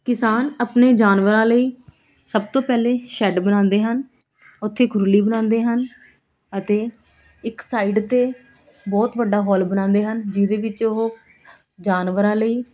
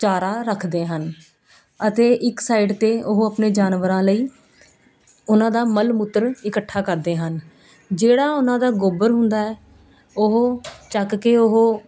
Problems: none marked